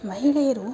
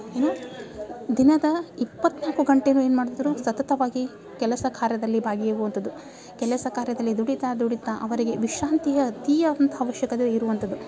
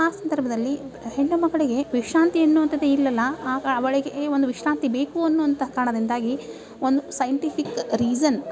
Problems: background sounds at intervals